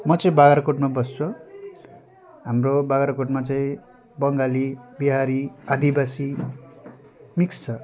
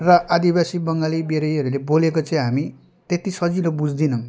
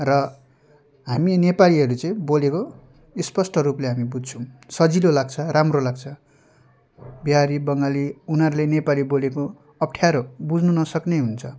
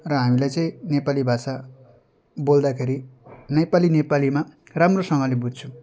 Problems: constant background noise